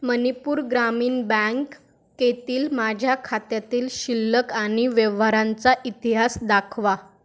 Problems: none marked